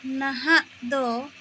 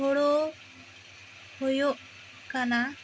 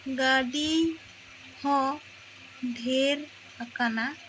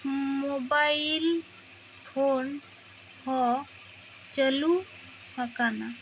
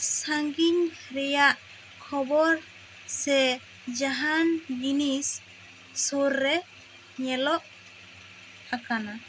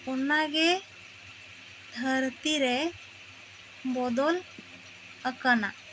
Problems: constant background noise